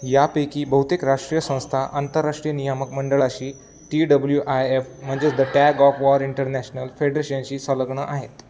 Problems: constant background noise, background conversations at intervals